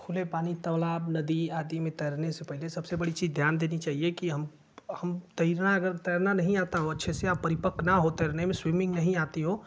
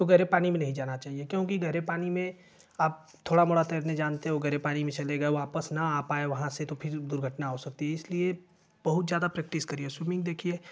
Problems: none marked